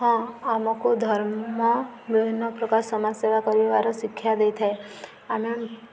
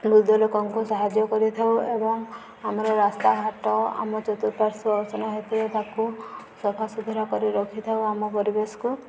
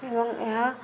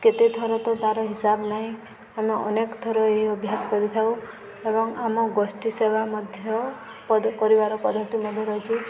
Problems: constant background noise